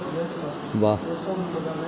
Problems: none marked